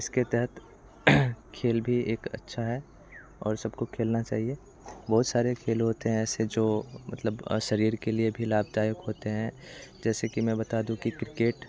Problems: constant background noise, continuous background conversations